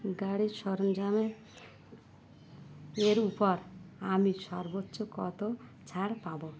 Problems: none marked